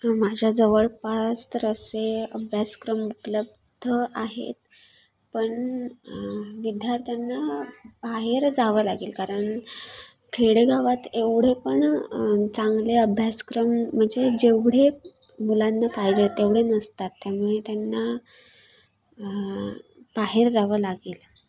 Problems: background sounds at intervals, continuous background conversations